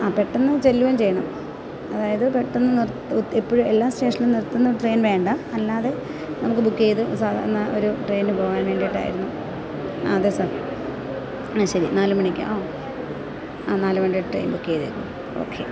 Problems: constant background noise